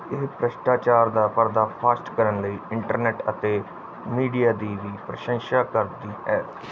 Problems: none marked